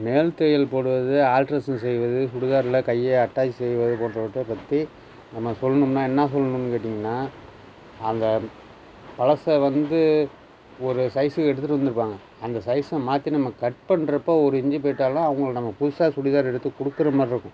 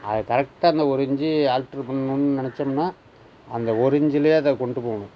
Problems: none marked